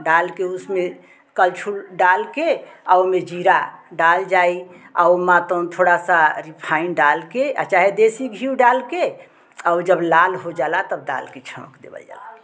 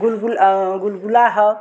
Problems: constant background noise, background conversations at intervals